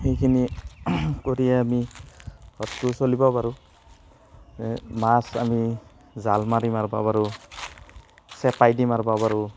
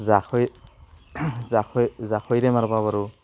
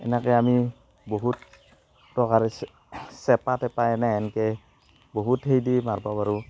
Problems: constant background noise